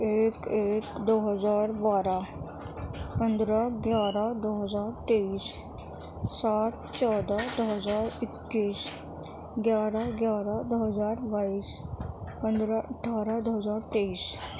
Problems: constant background noise